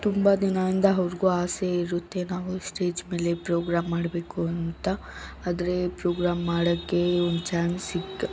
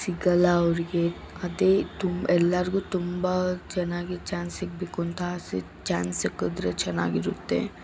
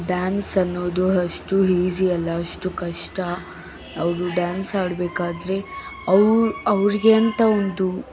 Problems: background sounds at intervals